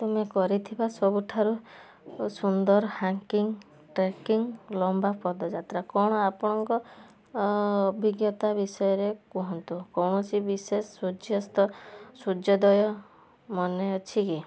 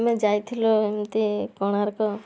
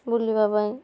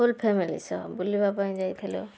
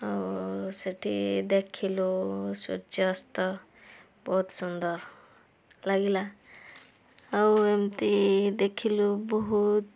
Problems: background sounds at intervals, background conversations at intervals